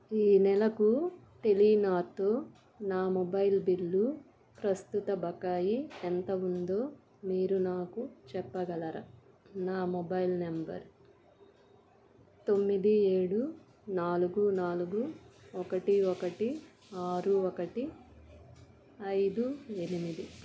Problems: constant background noise, background conversations at intervals